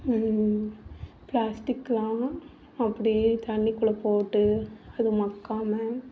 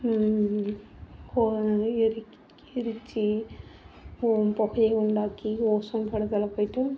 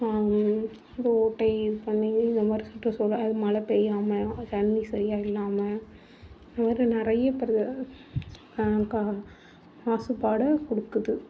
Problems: background sounds at intervals